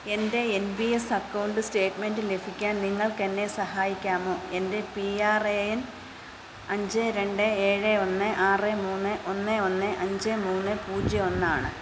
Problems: constant background noise, background conversations at intervals